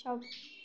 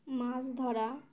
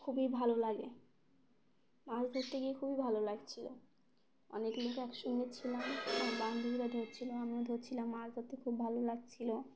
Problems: constant background noise